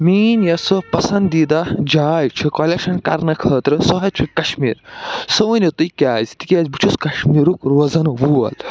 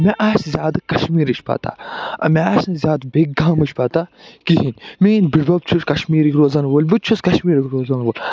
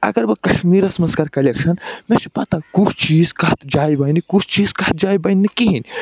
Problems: background sounds at intervals